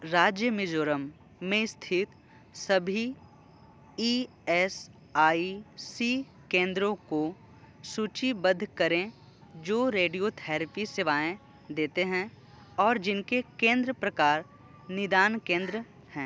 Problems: constant background noise